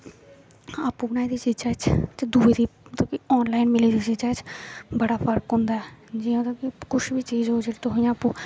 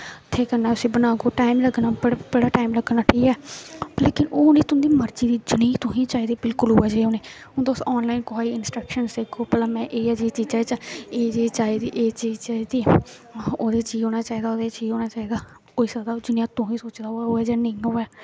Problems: constant background noise